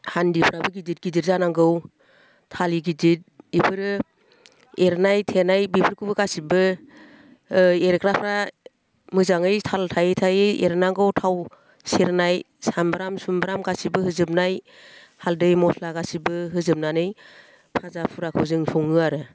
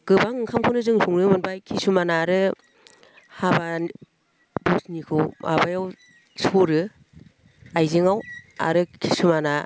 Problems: none marked